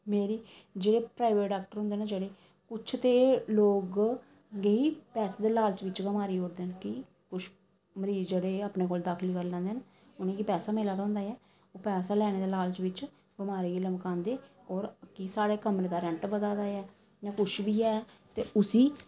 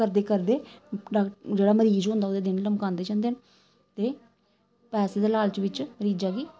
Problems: none marked